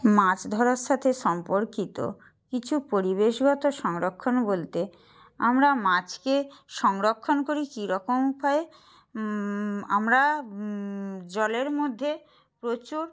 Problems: none marked